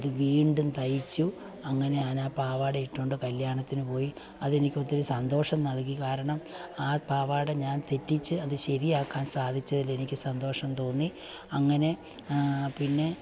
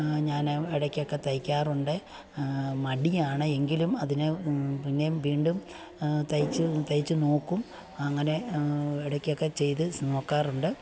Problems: background sounds at intervals, low volume